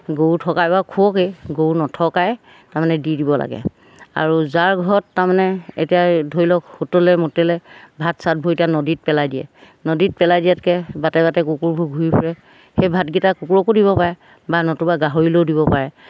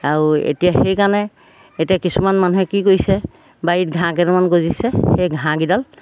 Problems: background sounds at intervals